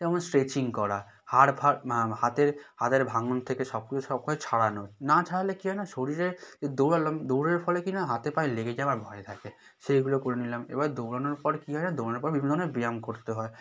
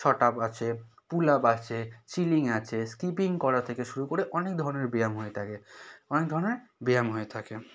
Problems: background sounds at intervals